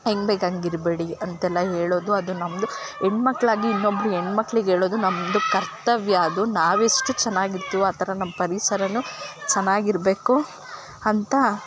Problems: background sounds at intervals